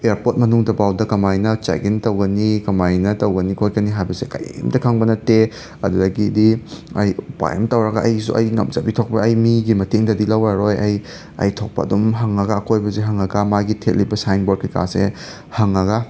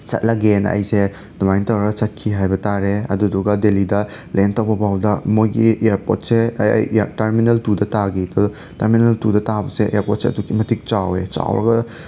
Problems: background sounds at intervals